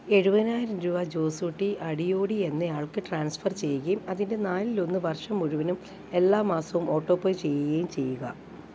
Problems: background sounds at intervals